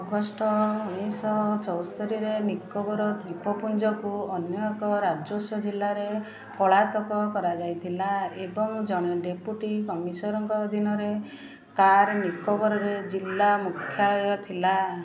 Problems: constant background noise